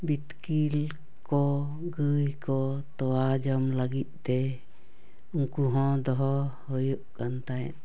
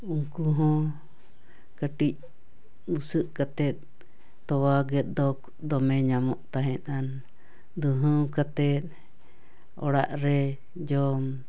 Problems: none marked